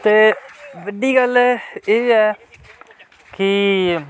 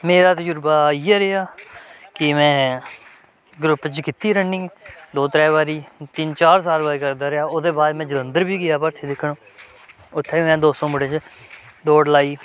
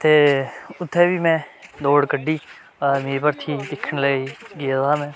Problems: background sounds at intervals